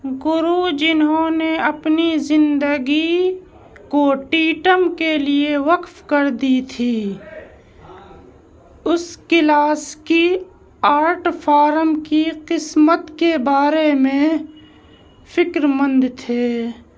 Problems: background conversations at intervals